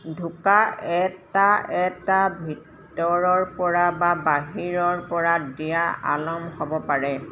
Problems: background sounds at intervals